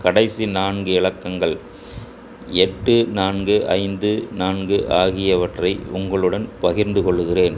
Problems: constant background noise